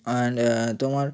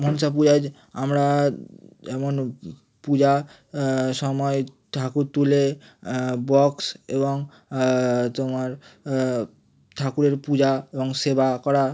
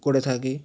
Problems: none marked